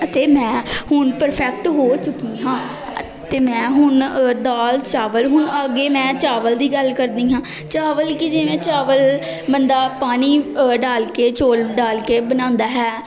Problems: constant background noise, continuous background conversations